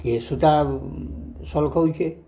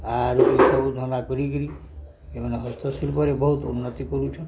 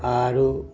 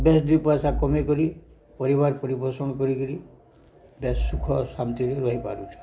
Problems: background sounds at intervals, low volume